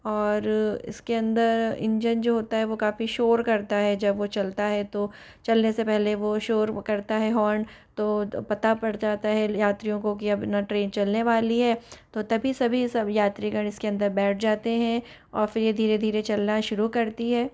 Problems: background sounds at intervals